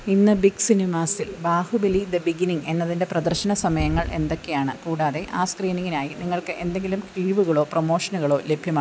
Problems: constant background noise